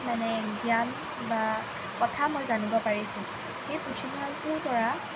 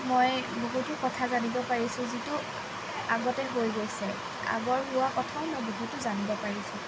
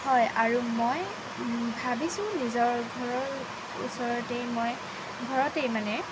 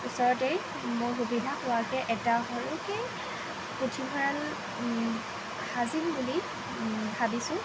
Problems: constant background noise